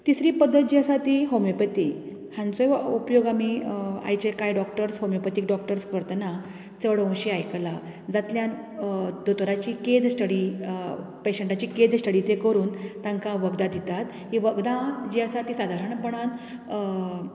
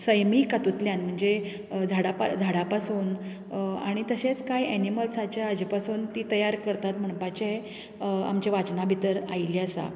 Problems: none marked